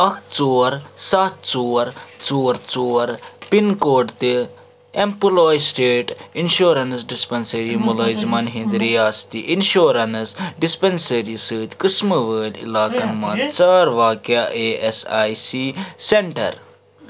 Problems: background sounds at intervals, background conversations at intervals